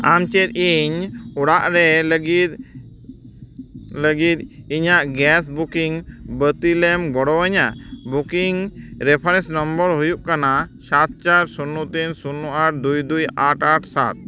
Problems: none marked